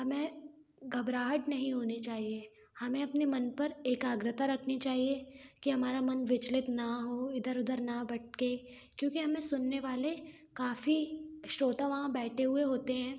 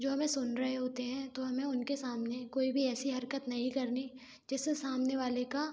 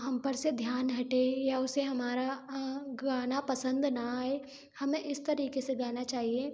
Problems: background sounds at intervals